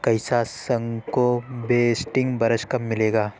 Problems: constant background noise